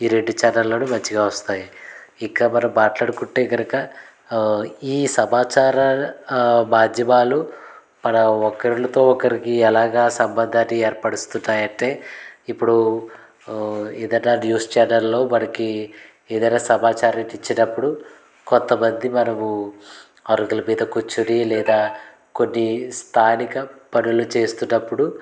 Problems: constant background noise